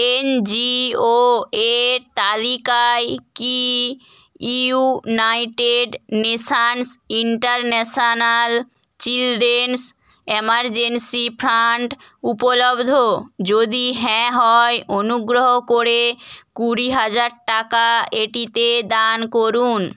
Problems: none marked